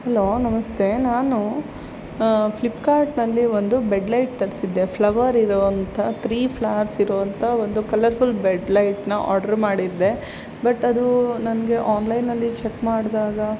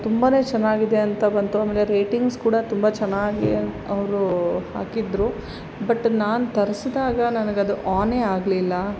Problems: constant background noise